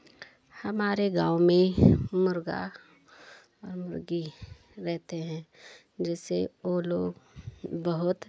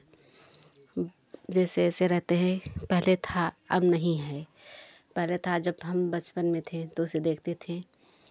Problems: none marked